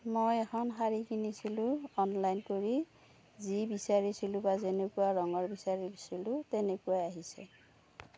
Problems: none marked